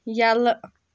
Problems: none marked